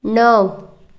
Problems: background sounds at intervals